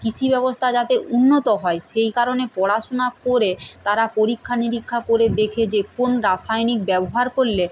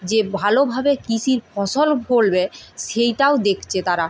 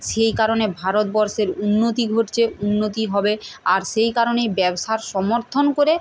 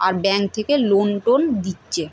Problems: constant background noise